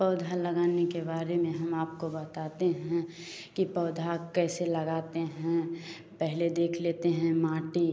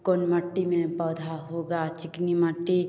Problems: none marked